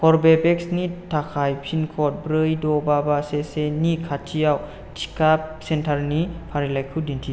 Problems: constant background noise